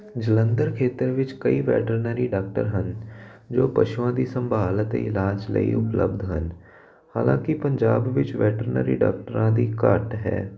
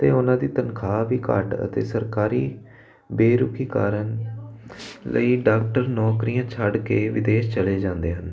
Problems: constant background noise